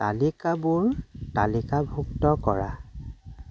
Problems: none marked